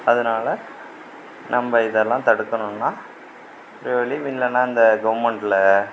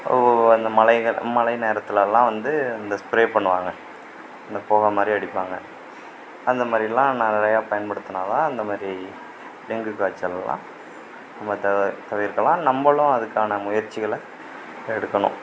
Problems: constant background noise, background conversations at intervals